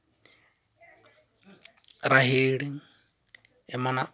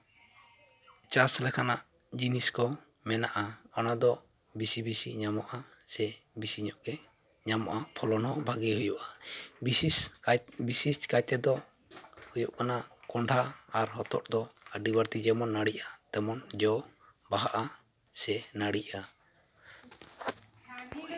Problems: constant background noise, background conversations at intervals